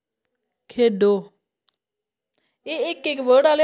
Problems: constant background noise